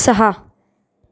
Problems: none marked